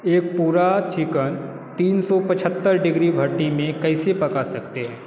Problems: constant background noise